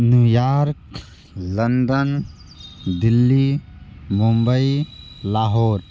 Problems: background sounds at intervals